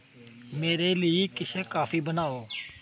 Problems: none marked